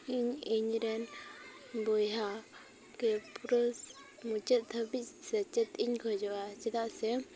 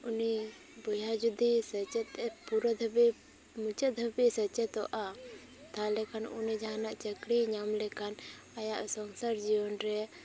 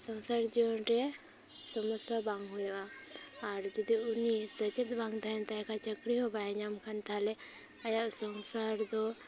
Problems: background sounds at intervals, continuous background conversations